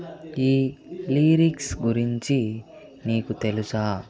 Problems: background conversations at intervals